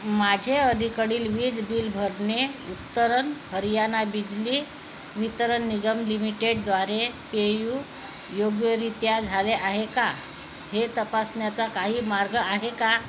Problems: constant background noise